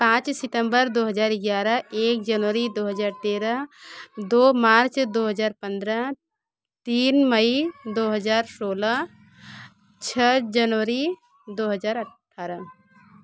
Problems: continuous background conversations